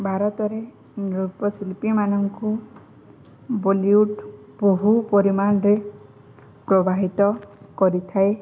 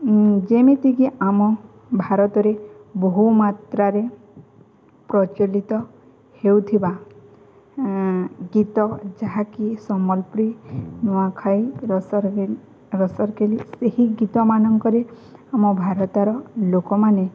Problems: none marked